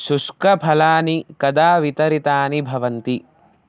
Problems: none marked